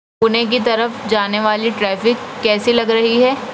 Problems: constant background noise